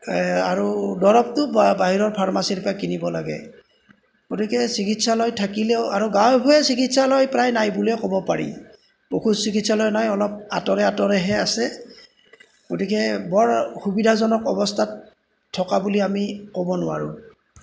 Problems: background sounds at intervals